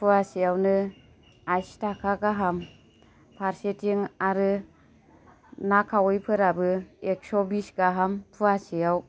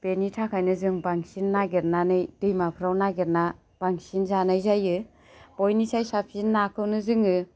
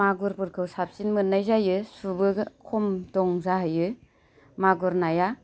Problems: none marked